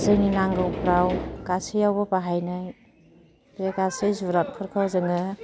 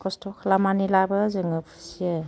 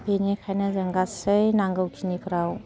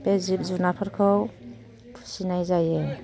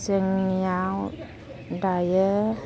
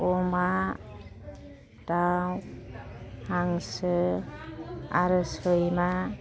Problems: background conversations at intervals